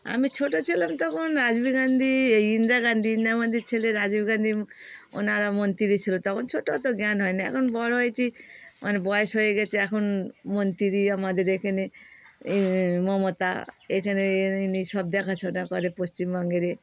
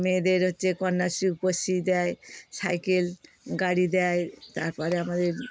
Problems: background sounds at intervals